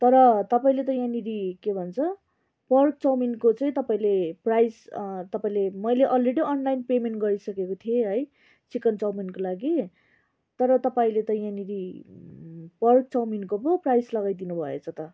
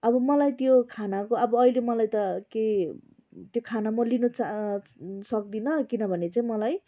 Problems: background conversations at intervals